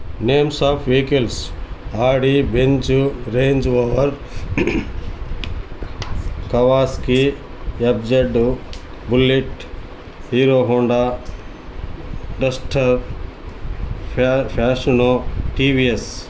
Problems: background sounds at intervals